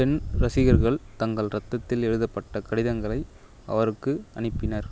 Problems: none marked